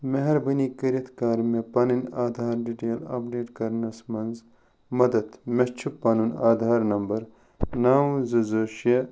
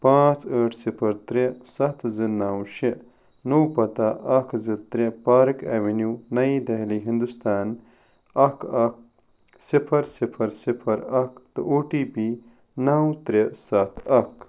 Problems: none marked